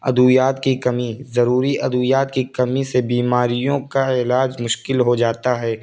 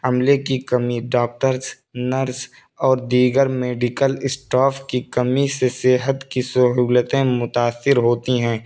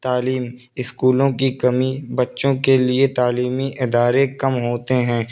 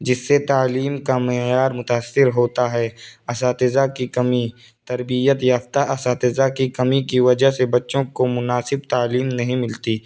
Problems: constant background noise